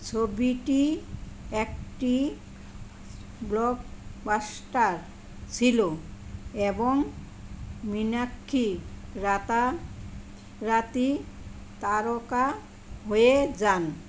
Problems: constant background noise